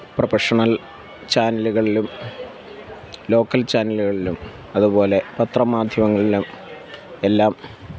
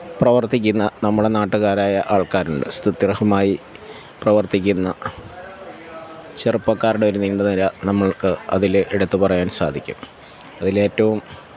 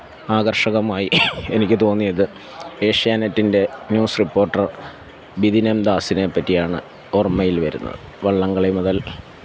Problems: background sounds at intervals